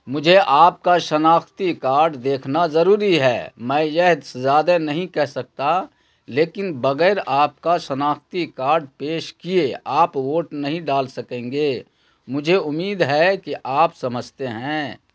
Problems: none marked